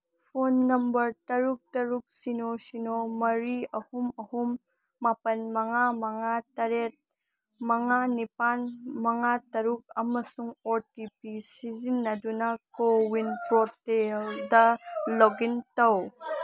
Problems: background conversations at intervals